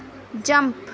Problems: constant background noise